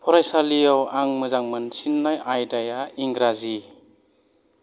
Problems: background sounds at intervals